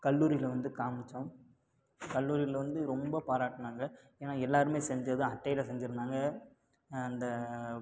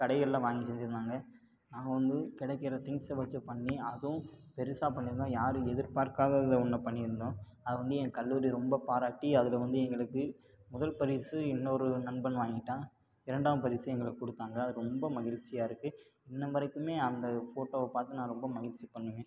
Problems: low volume